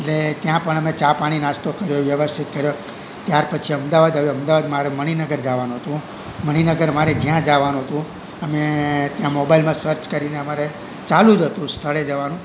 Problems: constant background noise